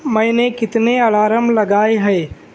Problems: none marked